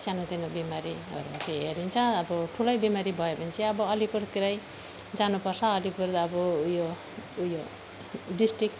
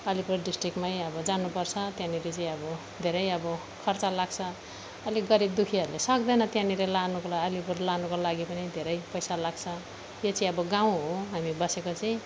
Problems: background sounds at intervals